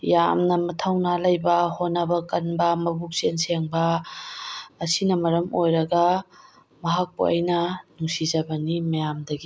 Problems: none marked